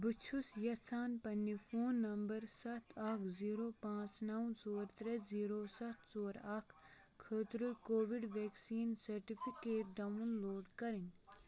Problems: background sounds at intervals, background conversations at intervals